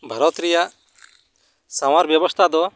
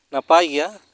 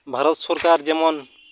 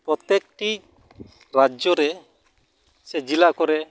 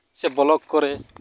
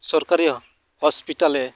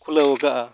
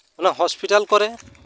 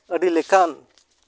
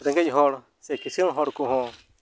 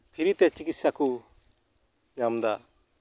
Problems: background sounds at intervals